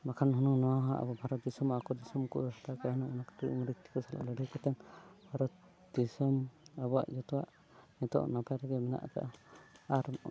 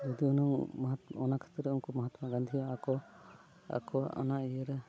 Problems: background sounds at intervals